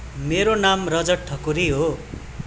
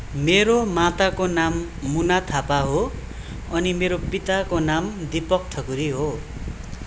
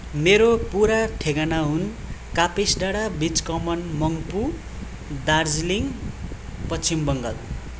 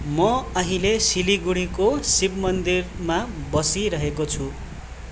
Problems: continuous background conversations